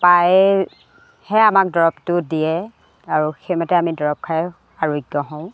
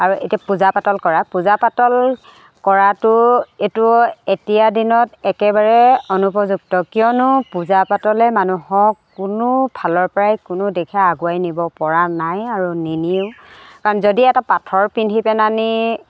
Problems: constant background noise